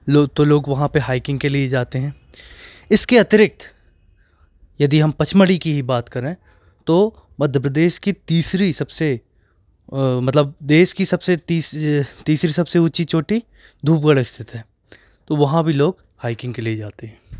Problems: background sounds at intervals